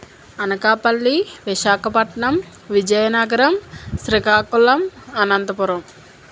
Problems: constant background noise